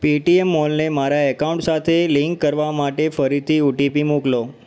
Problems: constant background noise, echo